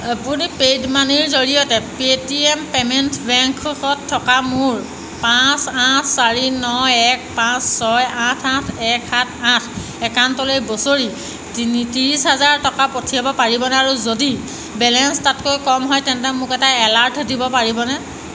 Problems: constant background noise